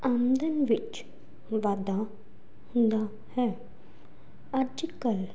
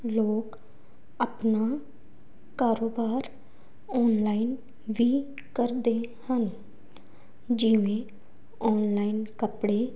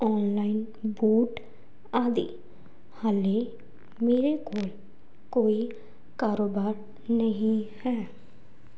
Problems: background sounds at intervals